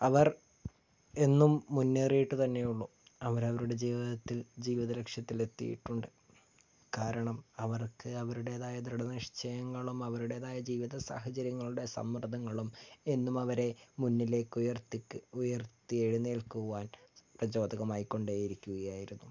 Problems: low volume